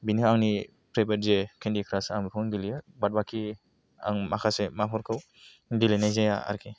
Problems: none marked